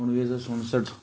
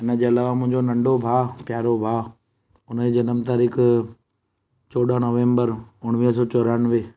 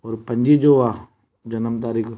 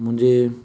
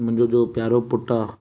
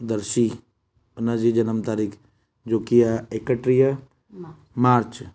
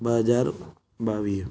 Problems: background conversations at intervals